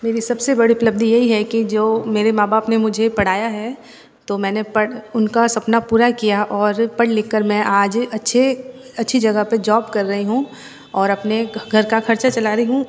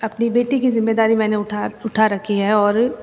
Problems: background sounds at intervals